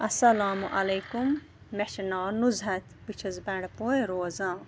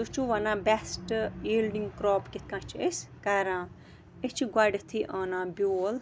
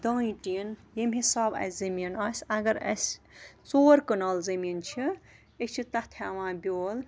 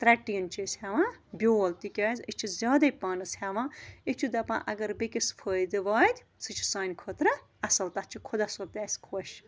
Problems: constant background noise